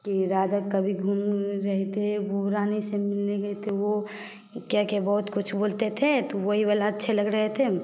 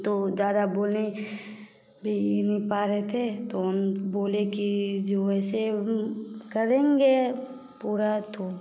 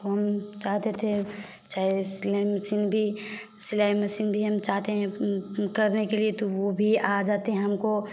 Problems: constant background noise